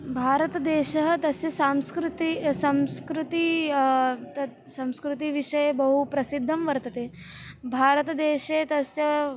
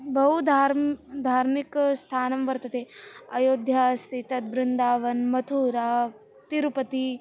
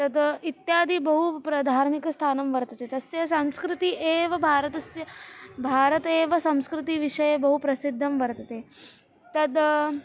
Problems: constant background noise